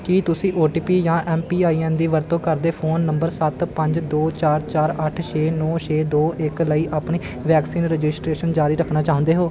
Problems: none marked